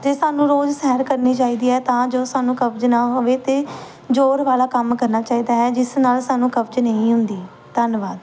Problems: none marked